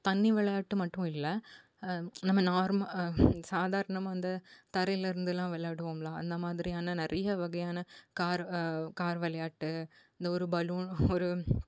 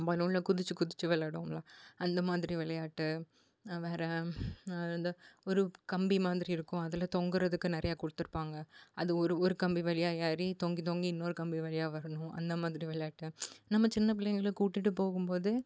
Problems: none marked